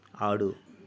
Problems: none marked